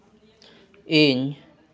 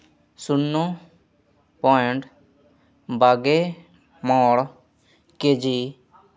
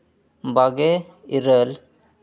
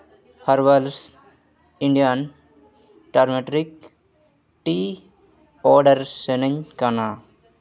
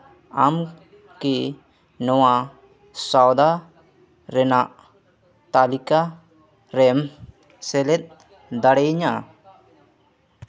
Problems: constant background noise, continuous background conversations